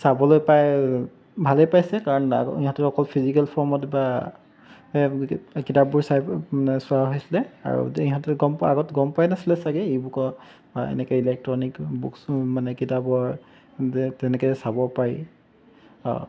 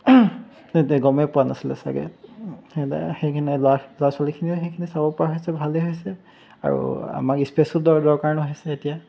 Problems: background sounds at intervals